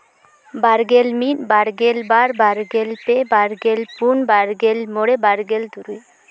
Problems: constant background noise, background conversations at intervals